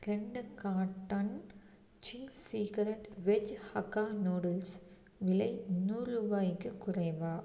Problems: none marked